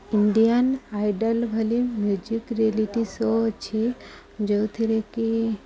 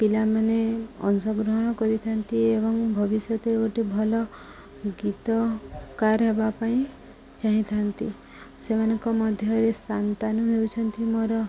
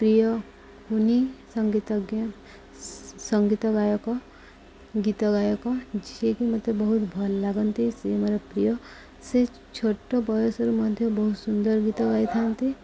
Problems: none marked